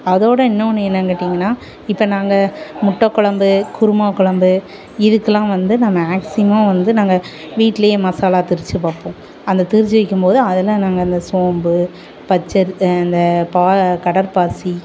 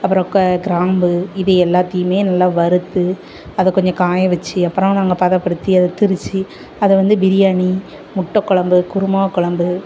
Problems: none marked